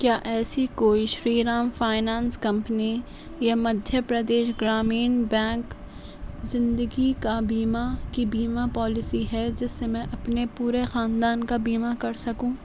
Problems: none marked